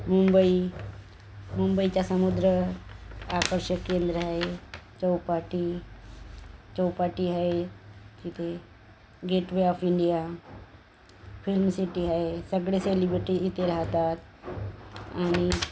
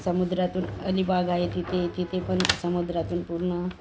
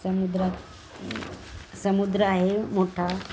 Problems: none marked